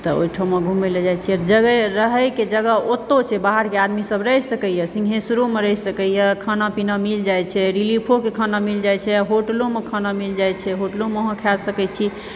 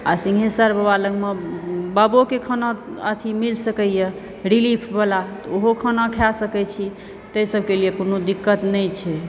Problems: background sounds at intervals